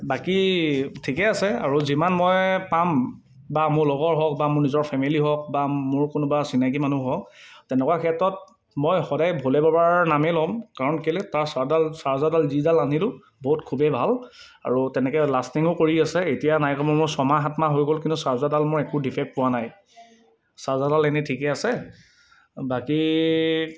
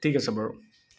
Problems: constant background noise